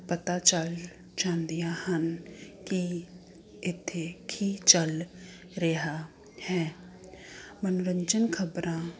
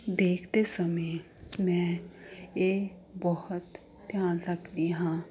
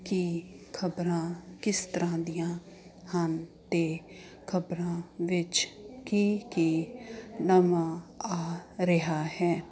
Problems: constant background noise